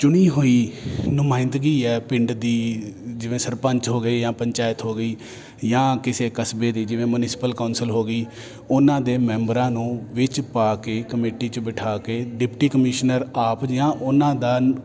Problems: constant background noise